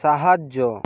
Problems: background sounds at intervals